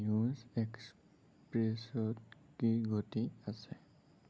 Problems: low volume